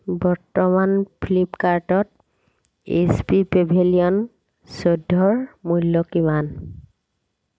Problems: constant background noise